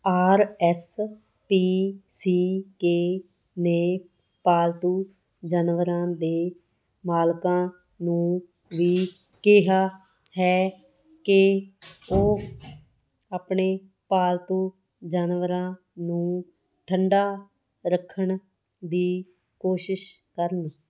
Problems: background sounds at intervals